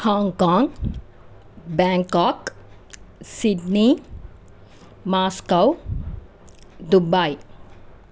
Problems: constant background noise